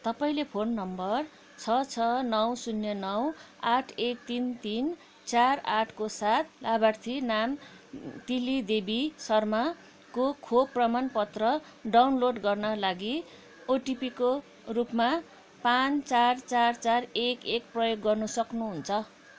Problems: none marked